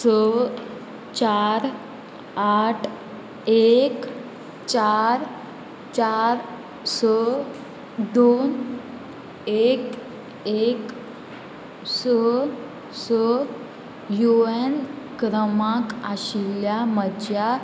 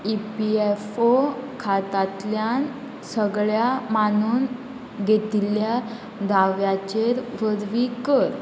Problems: constant background noise